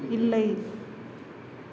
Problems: constant background noise